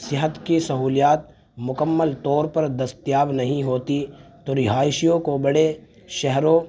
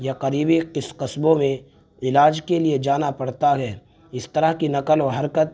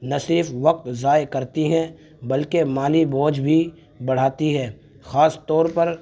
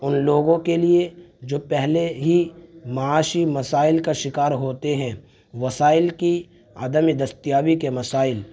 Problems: constant background noise